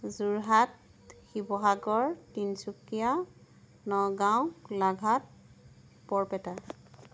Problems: background sounds at intervals